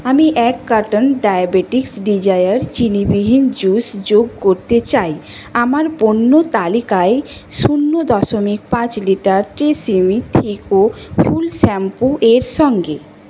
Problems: constant background noise